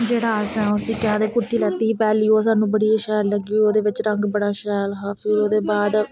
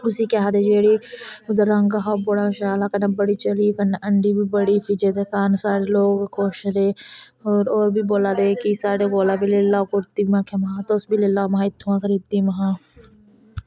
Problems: constant background noise